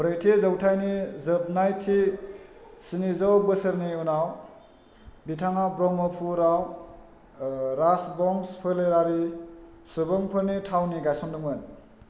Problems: constant background noise